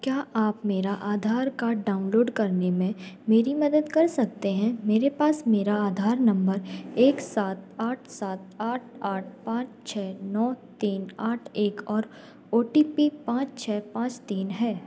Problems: background sounds at intervals